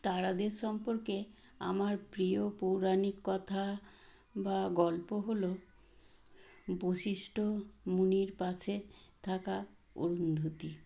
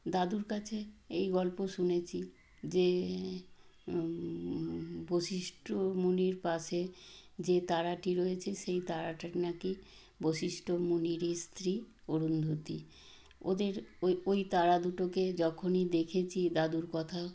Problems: none marked